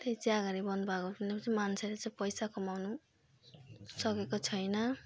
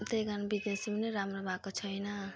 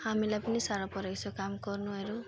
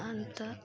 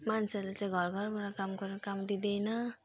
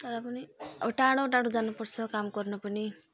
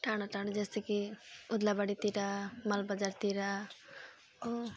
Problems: constant background noise